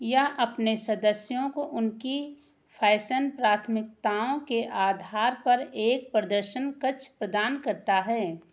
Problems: none marked